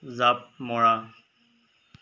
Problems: none marked